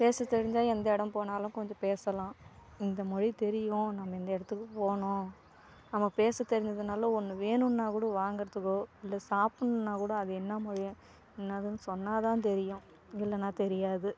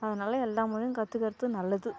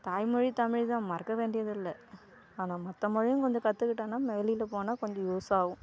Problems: background sounds at intervals